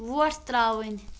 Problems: none marked